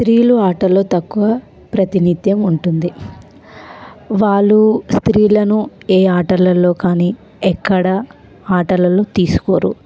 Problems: constant background noise